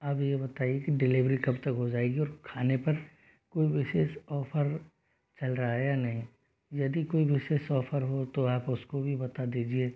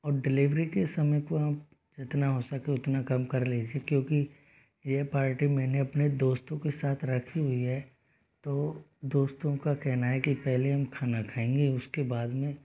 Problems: low volume